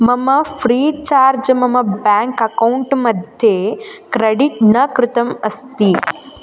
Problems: constant background noise